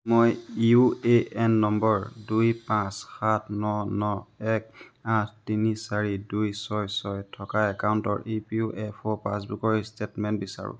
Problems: constant background noise